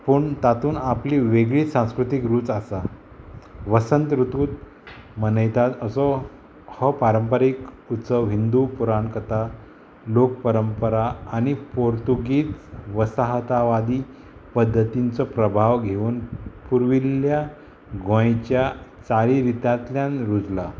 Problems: constant background noise